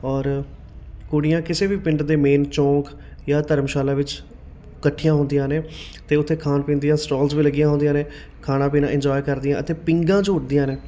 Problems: none marked